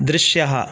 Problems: constant background noise